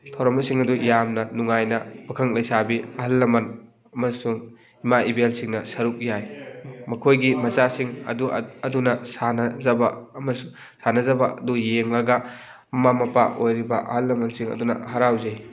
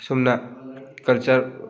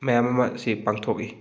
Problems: continuous background conversations